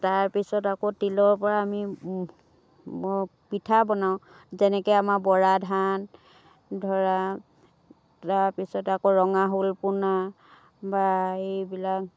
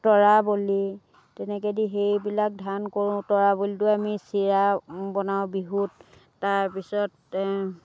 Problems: background sounds at intervals